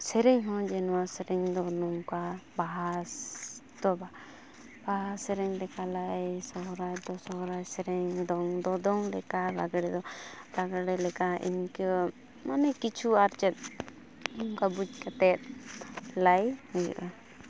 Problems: constant background noise